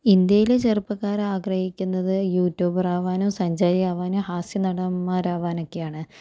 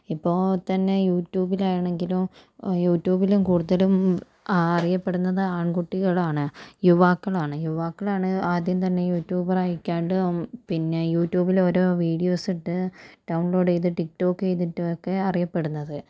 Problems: none marked